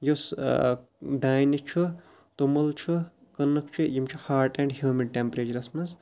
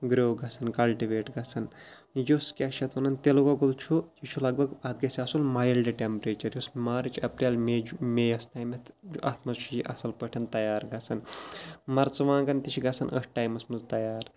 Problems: none marked